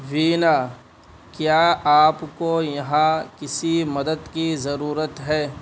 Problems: constant background noise